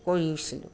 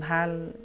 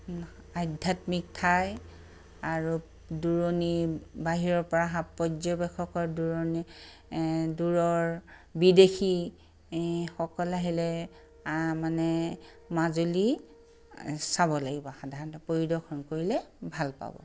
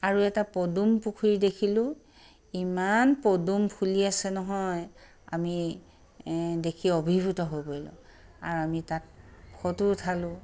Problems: none marked